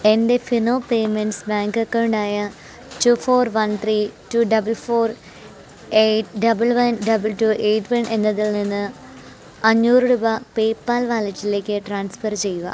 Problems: constant background noise